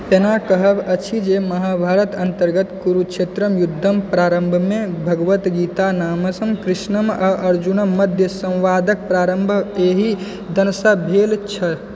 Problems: background conversations at intervals